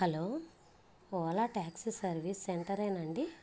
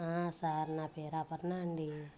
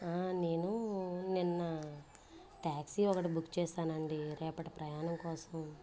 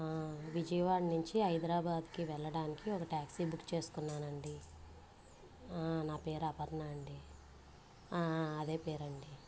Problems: background sounds at intervals, low volume